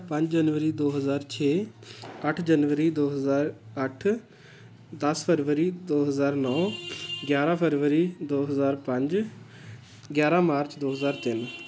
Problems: constant background noise